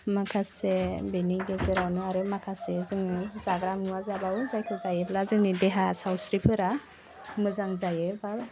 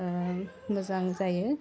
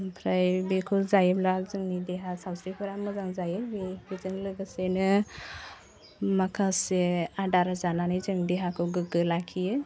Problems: none marked